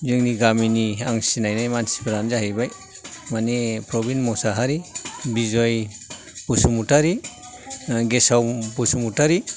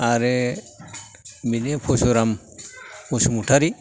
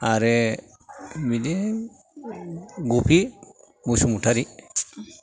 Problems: background sounds at intervals, background conversations at intervals